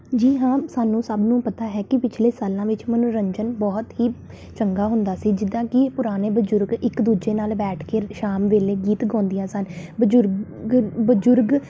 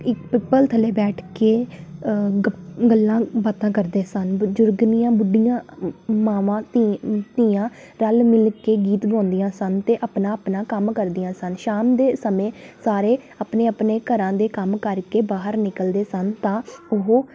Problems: background sounds at intervals